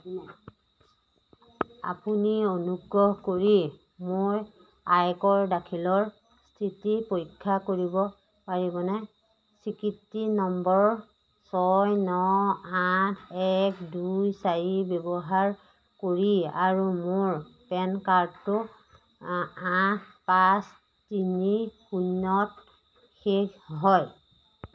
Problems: none marked